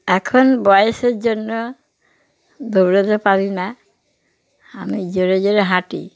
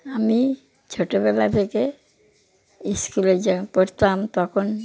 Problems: constant background noise